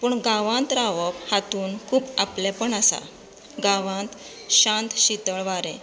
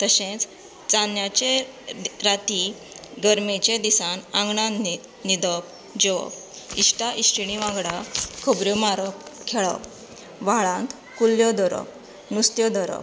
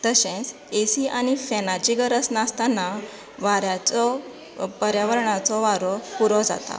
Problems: constant background noise